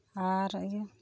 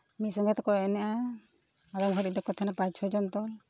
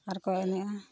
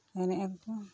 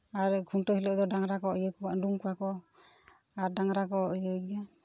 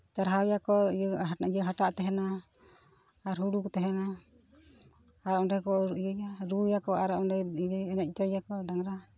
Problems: background sounds at intervals, background conversations at intervals